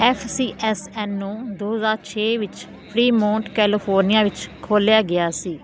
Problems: constant background noise